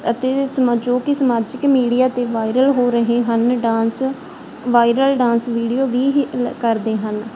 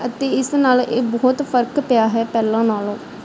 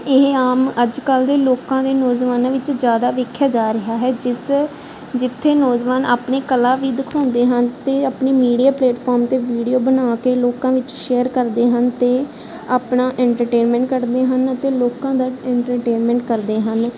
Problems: background sounds at intervals